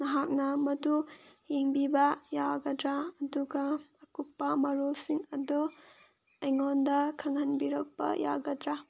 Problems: none marked